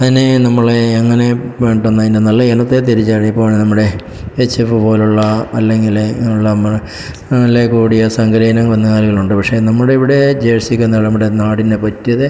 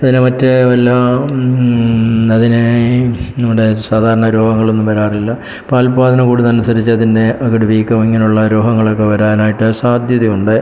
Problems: background sounds at intervals